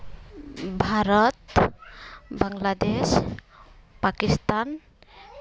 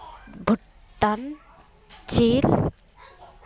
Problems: continuous background conversations